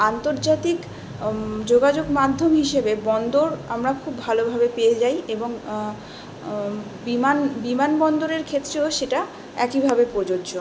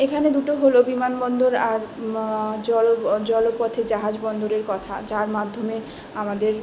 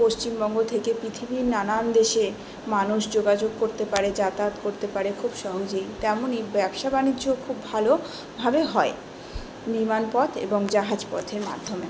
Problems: none marked